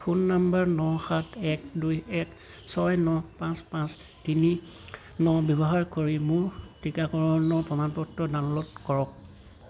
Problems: constant background noise